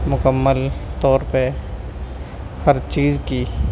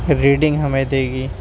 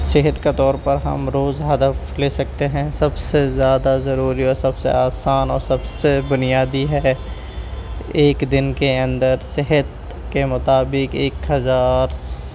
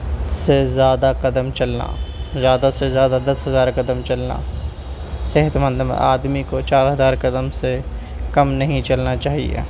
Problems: constant background noise